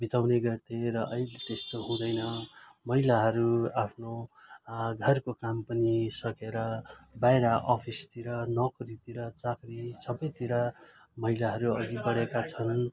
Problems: continuous background conversations